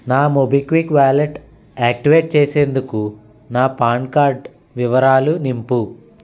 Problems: constant background noise